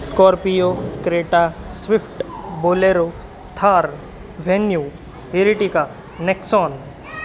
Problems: constant background noise, background conversations at intervals